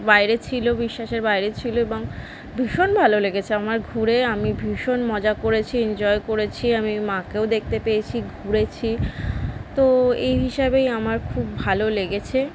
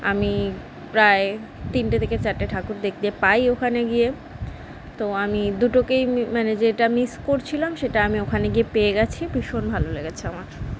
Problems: none marked